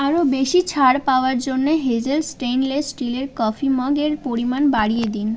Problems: continuous background conversations